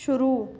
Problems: none marked